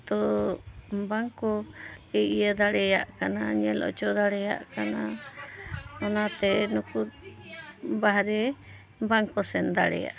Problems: background conversations at intervals